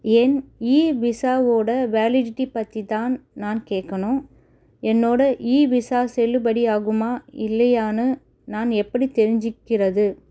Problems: none marked